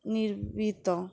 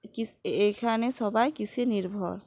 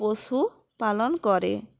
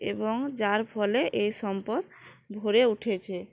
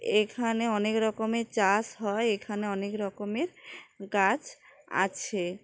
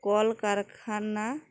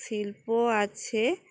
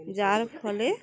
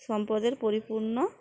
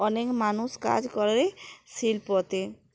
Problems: background sounds at intervals, background conversations at intervals